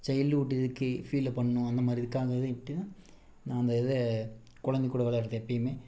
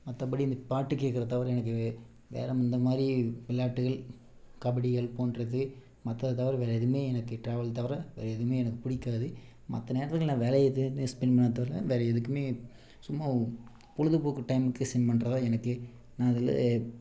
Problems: background sounds at intervals